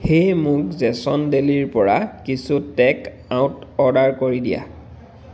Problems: constant background noise